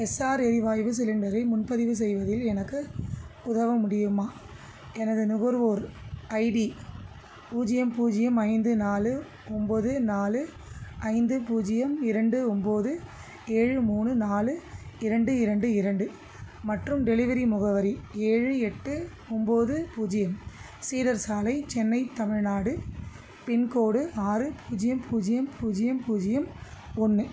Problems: constant background noise